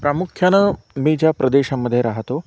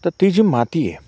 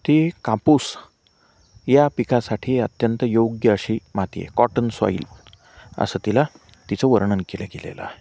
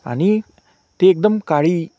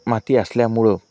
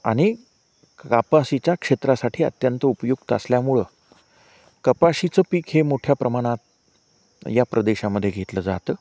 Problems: none marked